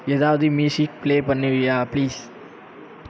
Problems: none marked